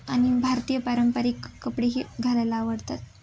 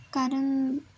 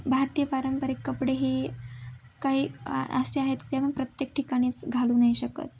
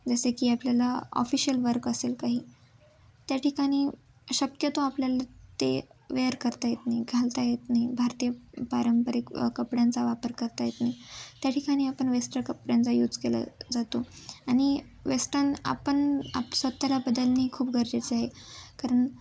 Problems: background sounds at intervals